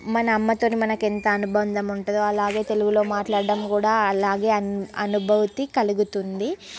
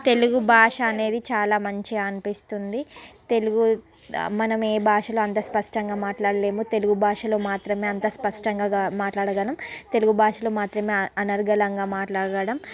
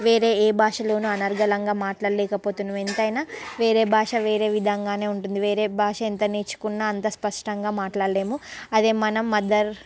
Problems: constant background noise, background conversations at intervals